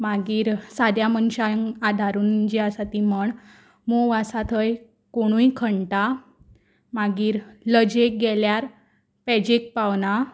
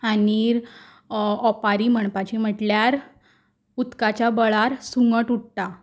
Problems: none marked